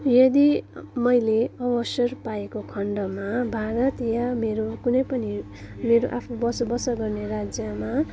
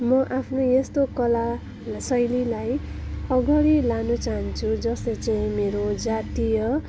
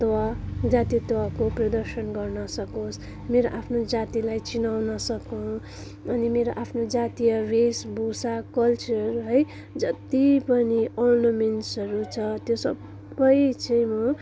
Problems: background sounds at intervals